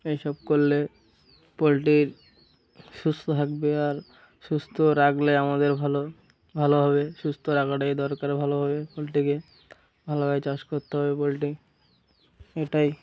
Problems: constant background noise